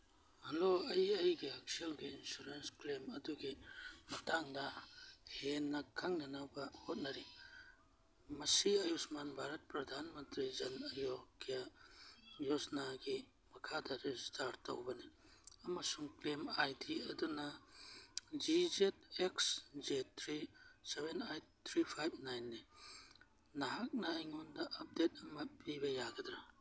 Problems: background sounds at intervals, background conversations at intervals